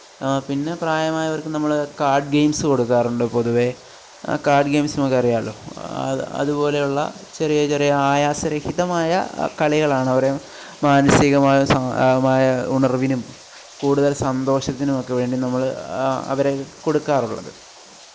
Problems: none marked